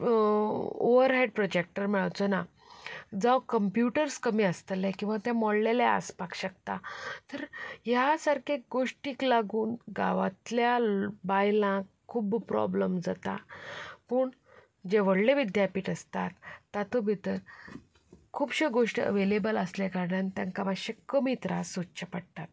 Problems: background sounds at intervals, background conversations at intervals